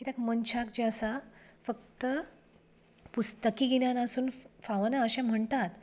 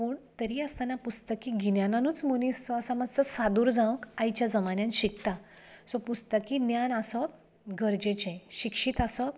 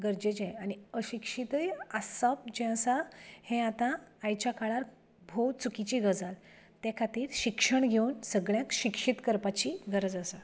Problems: none marked